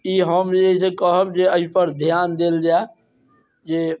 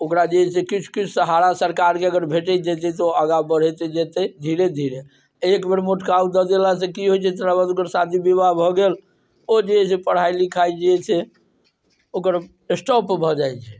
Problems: none marked